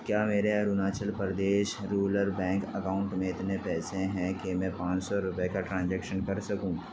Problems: constant background noise